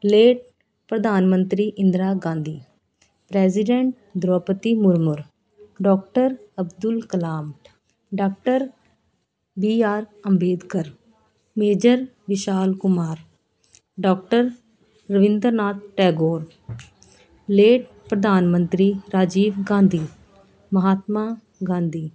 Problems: continuous background conversations